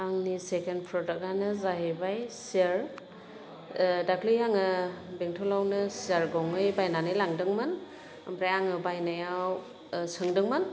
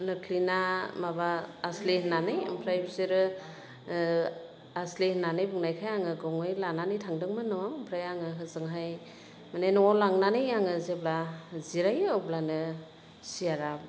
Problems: none marked